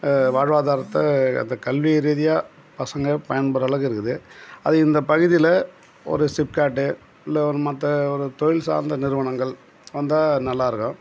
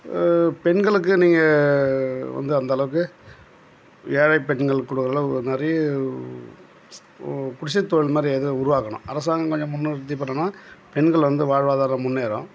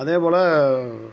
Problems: constant background noise